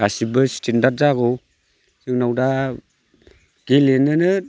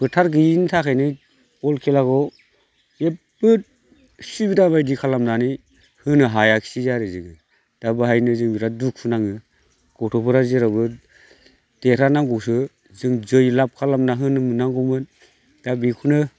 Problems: none marked